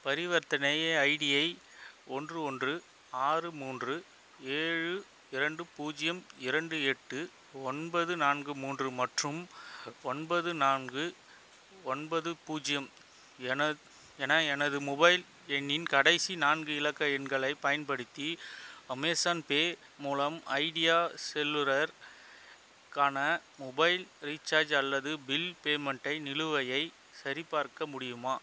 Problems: constant background noise